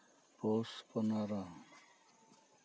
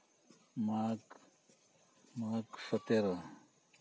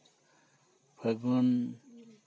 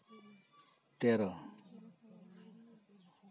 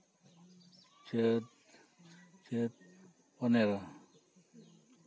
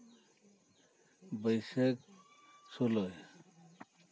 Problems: none marked